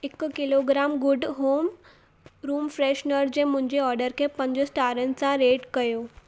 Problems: constant background noise